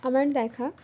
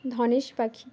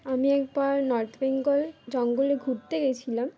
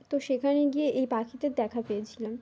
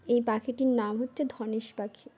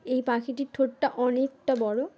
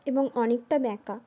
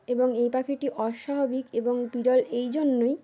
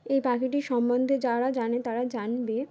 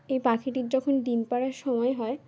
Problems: constant background noise, background conversations at intervals